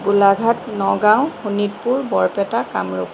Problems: constant background noise